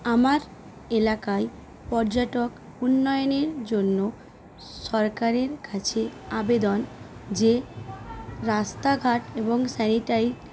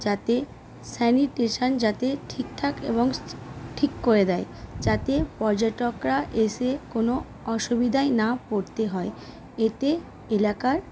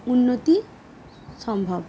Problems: constant background noise